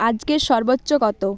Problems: none marked